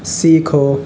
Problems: background sounds at intervals